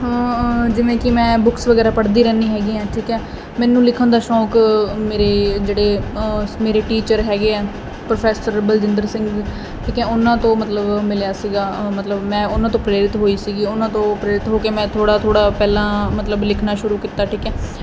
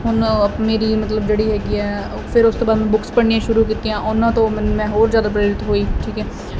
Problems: constant background noise